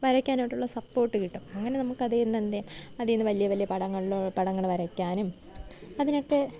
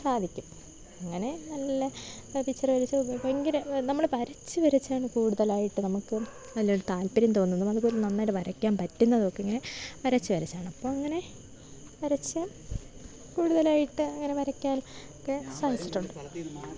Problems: low volume